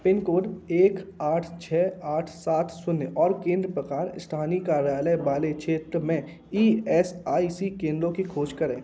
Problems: constant background noise, background conversations at intervals